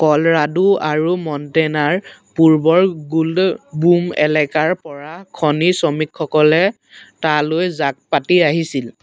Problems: constant background noise